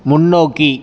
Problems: none marked